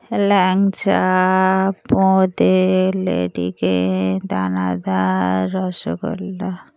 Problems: none marked